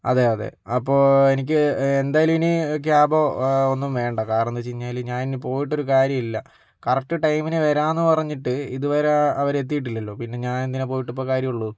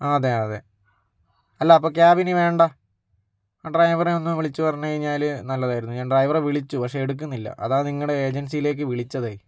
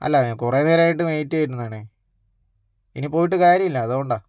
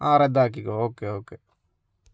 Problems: none marked